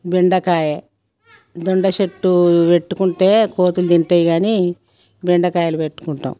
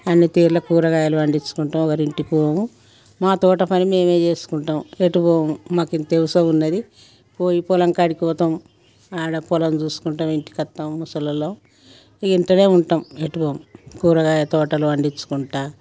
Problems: background conversations at intervals